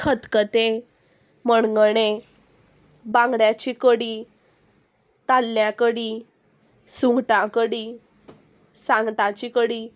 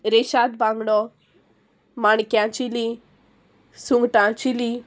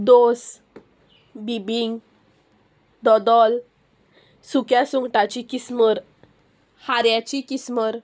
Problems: constant background noise